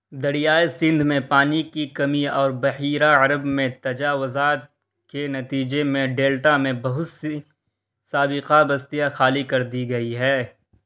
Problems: constant background noise